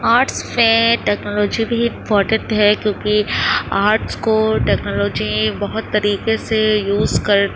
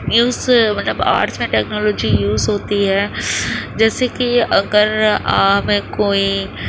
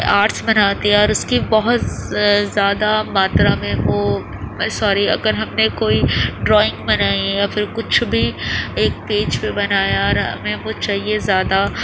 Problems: constant background noise